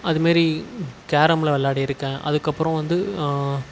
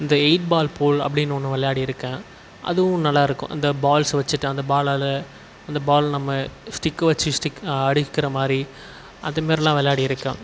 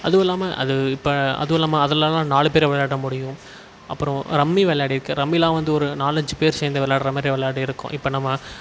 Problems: constant background noise